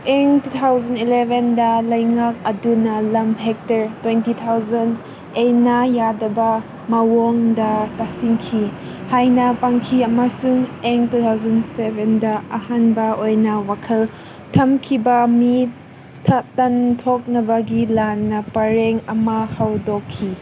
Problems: constant background noise